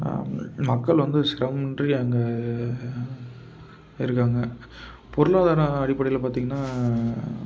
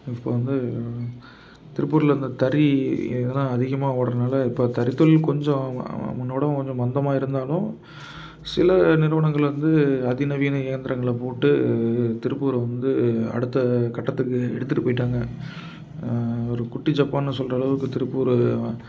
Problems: constant background noise